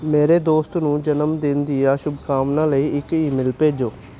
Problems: none marked